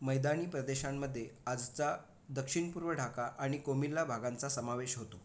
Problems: background sounds at intervals